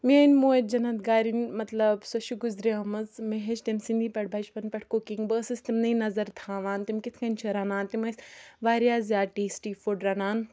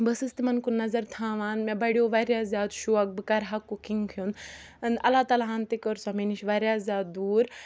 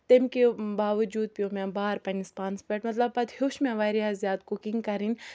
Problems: background sounds at intervals